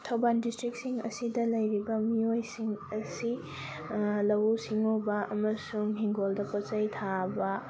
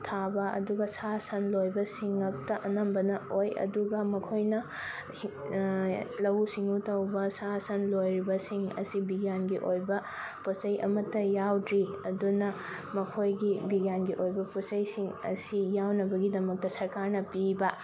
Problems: constant background noise